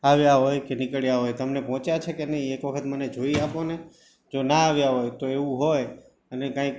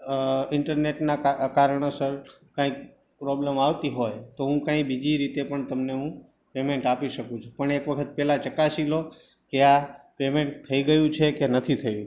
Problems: background sounds at intervals